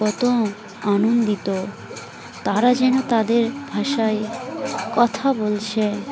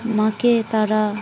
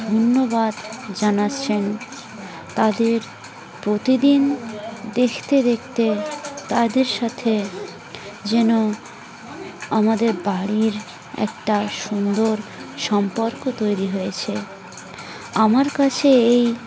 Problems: constant background noise, continuous background conversations